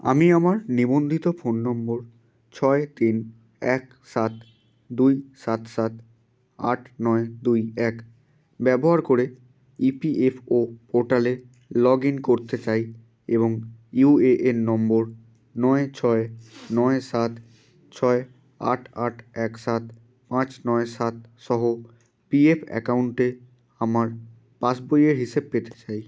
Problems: constant background noise